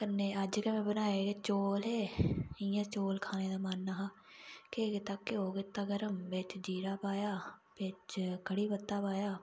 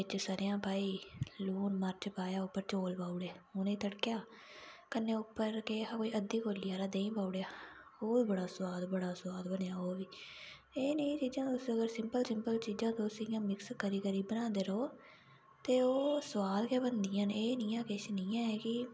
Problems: background sounds at intervals